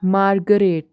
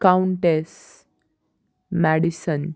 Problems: constant background noise